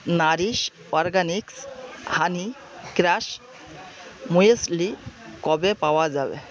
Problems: constant background noise